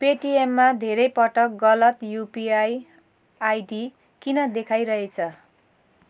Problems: background sounds at intervals